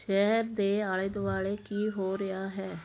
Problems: background conversations at intervals